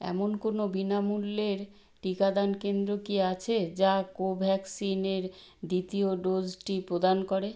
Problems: none marked